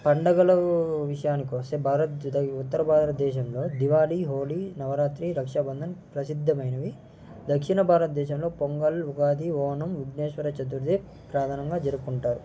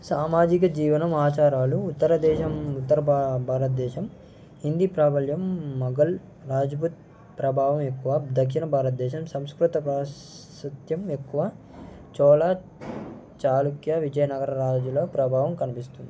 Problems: constant background noise